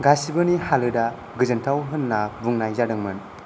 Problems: constant background noise